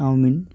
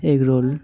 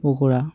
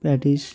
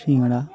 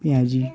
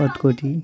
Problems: background sounds at intervals, background conversations at intervals